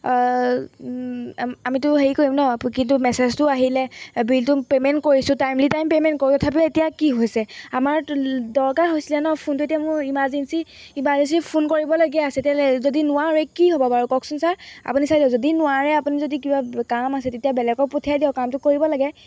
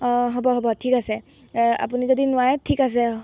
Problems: background sounds at intervals